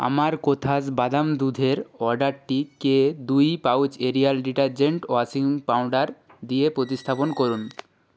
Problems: constant background noise